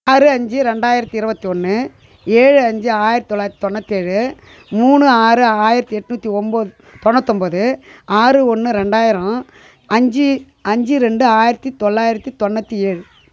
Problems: constant background noise